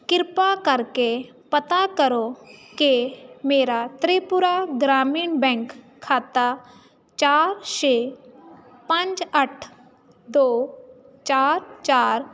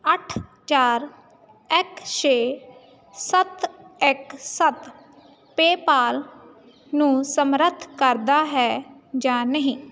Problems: constant background noise